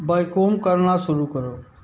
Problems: background sounds at intervals, echo